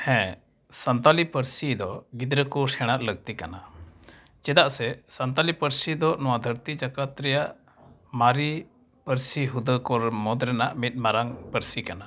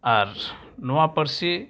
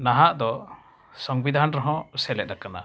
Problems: none marked